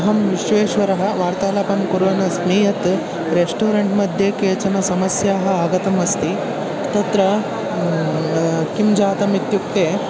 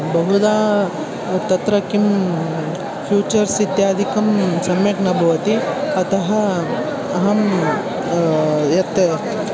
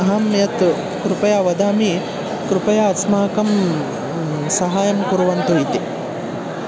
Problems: constant background noise